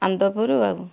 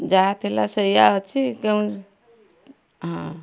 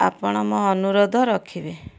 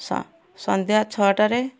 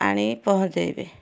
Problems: constant background noise, continuous background conversations